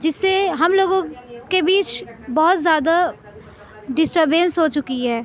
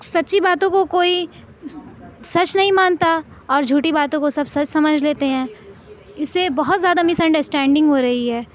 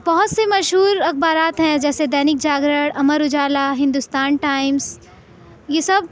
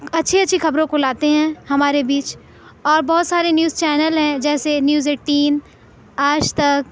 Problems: none marked